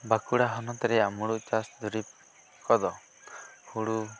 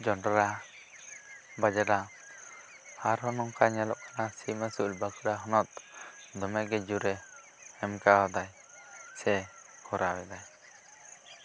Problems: constant background noise